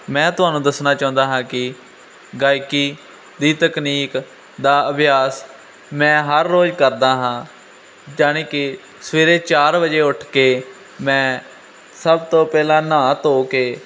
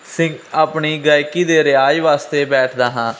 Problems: constant background noise